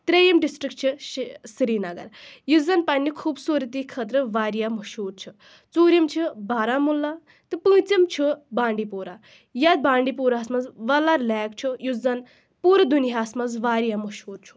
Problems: background sounds at intervals